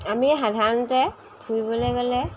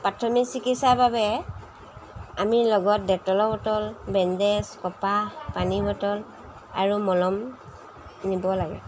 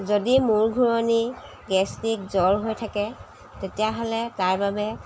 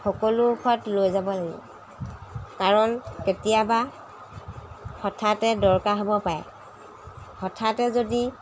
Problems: background sounds at intervals